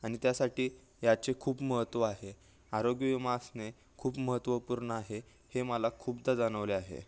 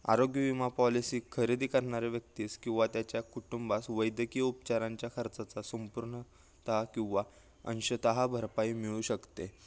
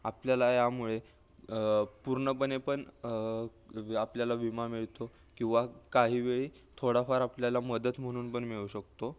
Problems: background sounds at intervals